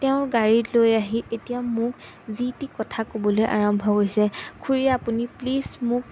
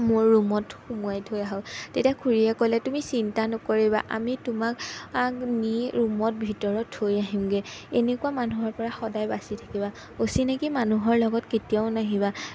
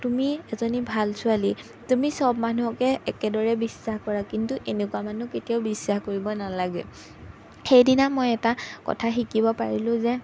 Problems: background sounds at intervals